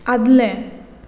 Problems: constant background noise